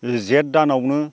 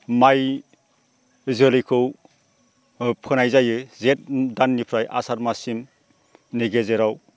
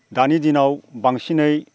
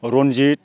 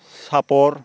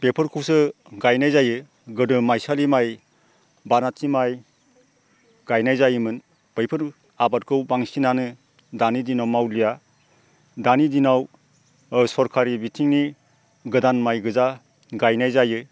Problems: constant background noise